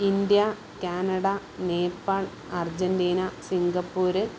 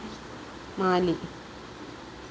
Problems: constant background noise, background conversations at intervals